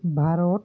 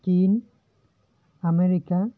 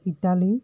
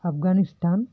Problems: none marked